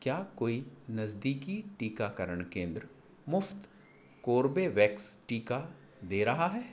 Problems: none marked